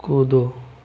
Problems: low volume